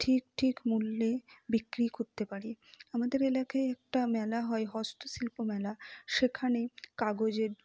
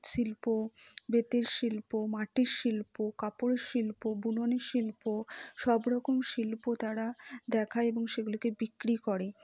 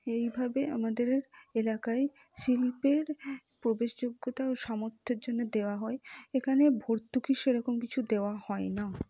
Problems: low volume